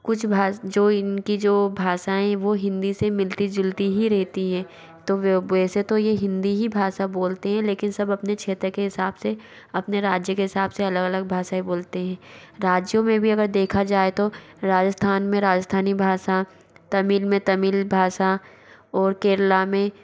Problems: background sounds at intervals